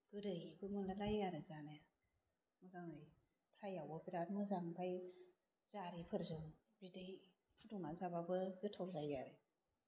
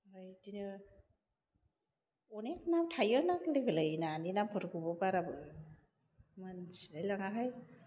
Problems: none marked